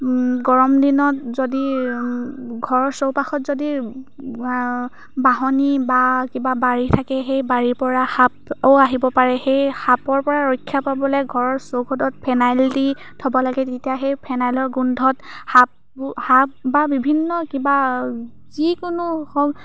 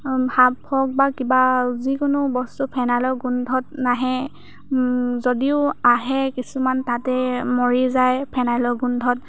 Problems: none marked